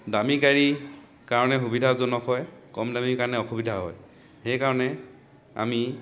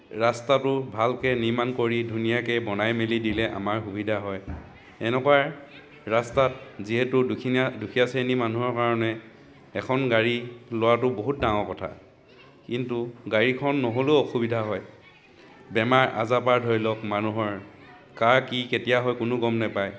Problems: background conversations at intervals